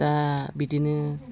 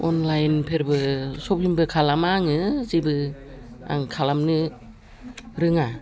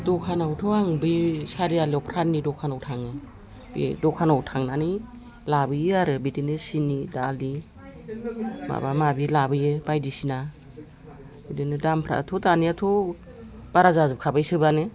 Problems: background conversations at intervals